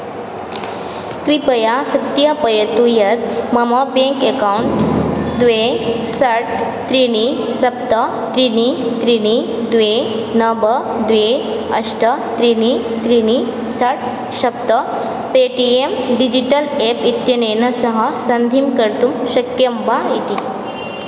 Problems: constant background noise